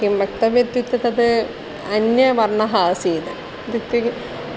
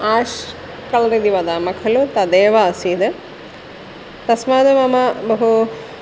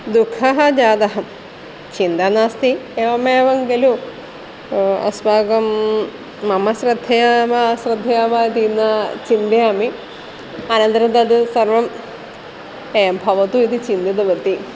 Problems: none marked